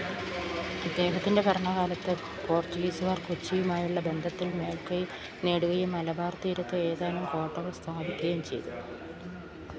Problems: background sounds at intervals